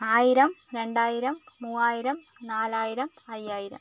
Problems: constant background noise